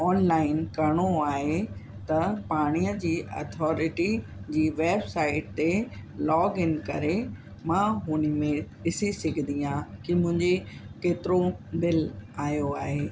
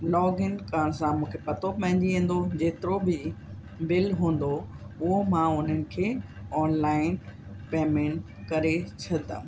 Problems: constant background noise